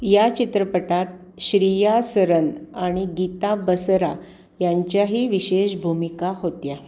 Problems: none marked